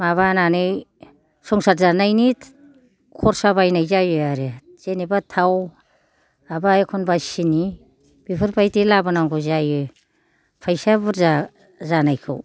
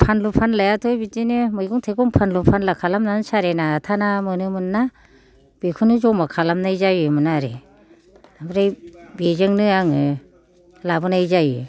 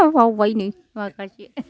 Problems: none marked